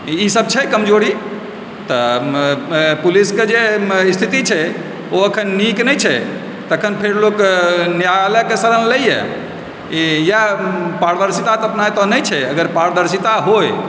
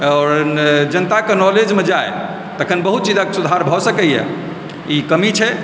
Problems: constant background noise